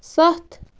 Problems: constant background noise